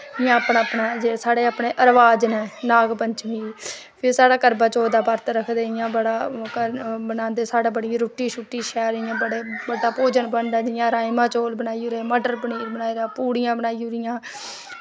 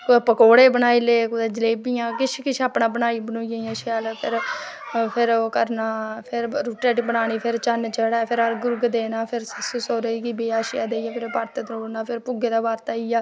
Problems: none marked